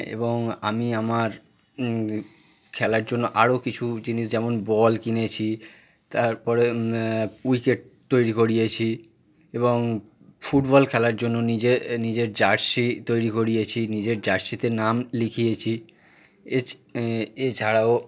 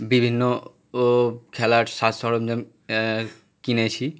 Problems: background sounds at intervals